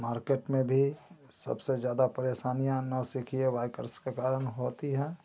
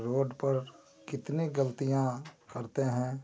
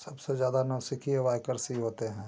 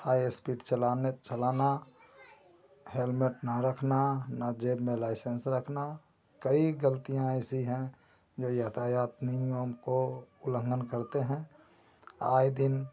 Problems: constant background noise